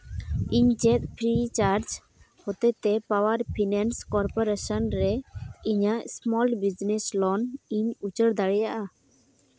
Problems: background sounds at intervals